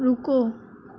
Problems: none marked